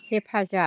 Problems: background conversations at intervals